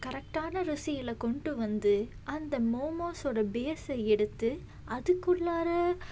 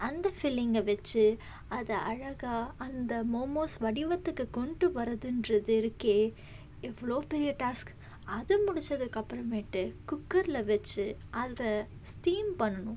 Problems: background sounds at intervals